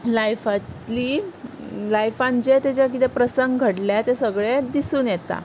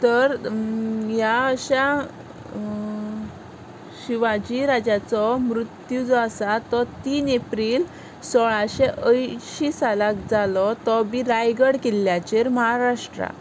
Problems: none marked